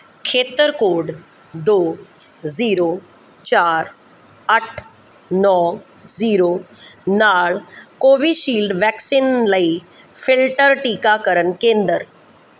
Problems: background sounds at intervals